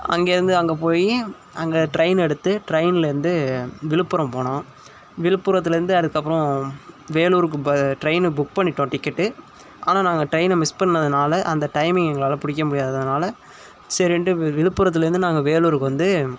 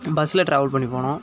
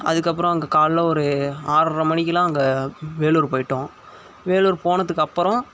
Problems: none marked